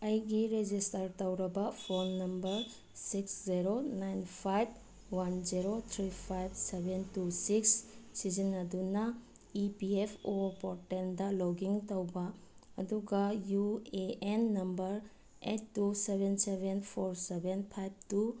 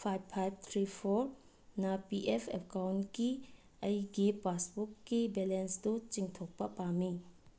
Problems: low volume